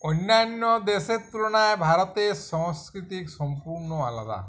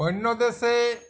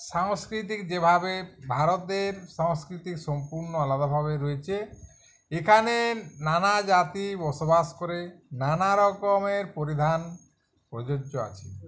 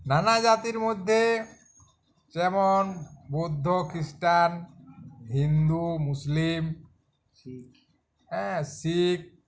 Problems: background conversations at intervals